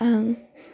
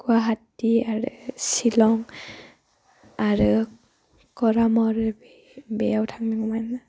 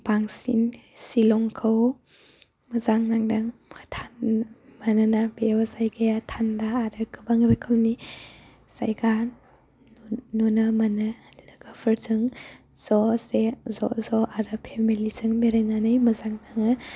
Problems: constant background noise